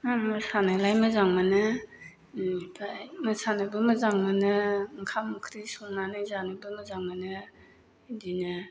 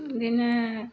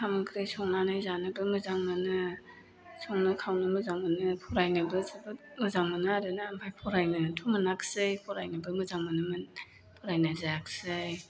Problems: none marked